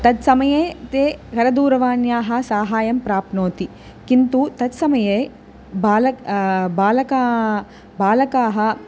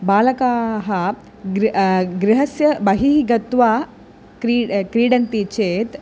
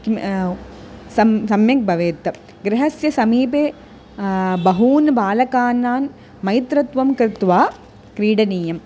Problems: constant background noise